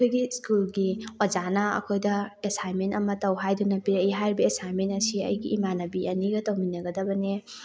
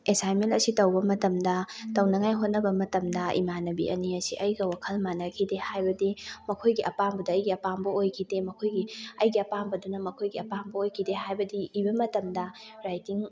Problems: background sounds at intervals, continuous background conversations